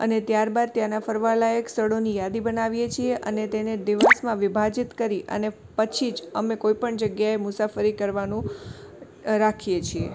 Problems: background sounds at intervals